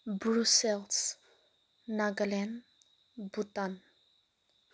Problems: none marked